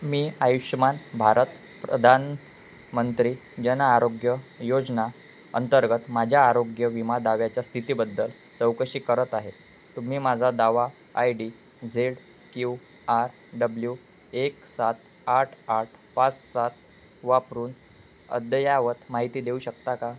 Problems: constant background noise